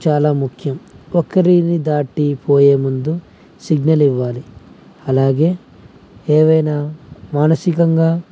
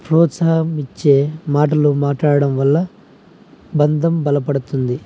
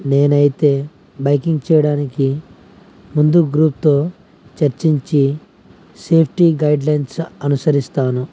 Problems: none marked